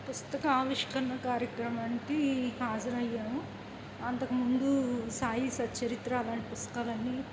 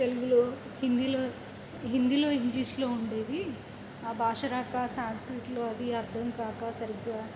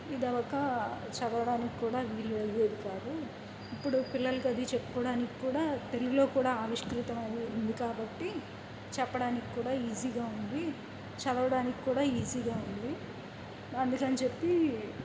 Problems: constant background noise